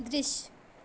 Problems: none marked